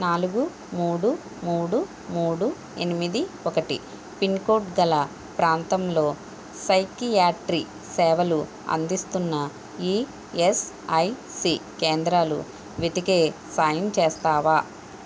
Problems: constant background noise